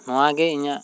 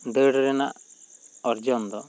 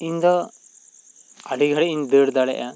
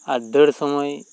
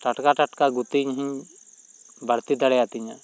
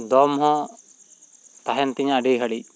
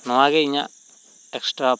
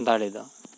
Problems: constant background noise